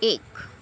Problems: none marked